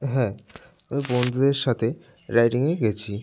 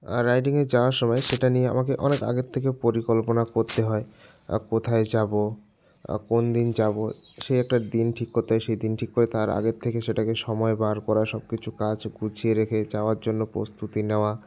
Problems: none marked